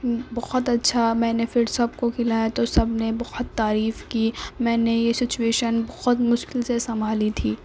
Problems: constant background noise